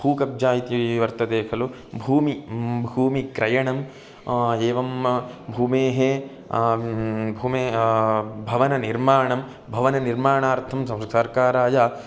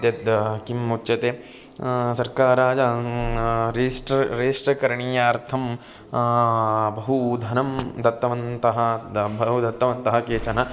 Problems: constant background noise